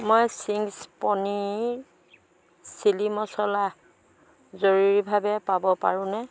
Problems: background sounds at intervals